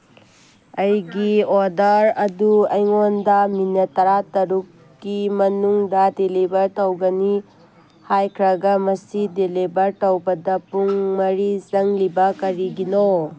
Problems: background sounds at intervals